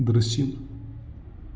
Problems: background sounds at intervals